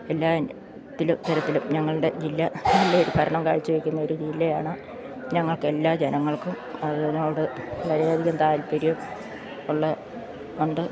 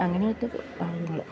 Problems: none marked